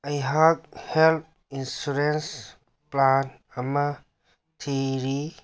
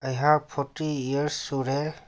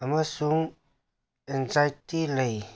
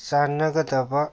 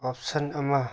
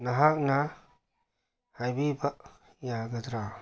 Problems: none marked